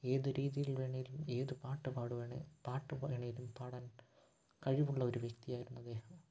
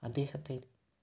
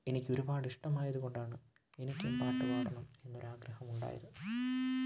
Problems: background sounds at intervals, low volume